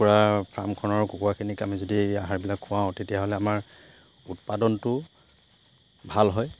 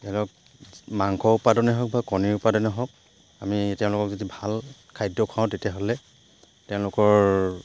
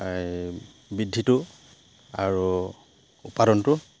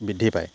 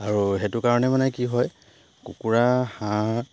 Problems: background sounds at intervals